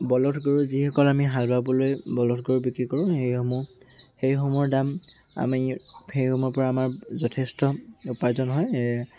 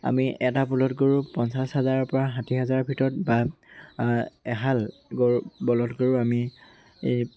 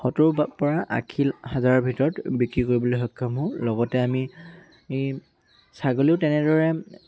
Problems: none marked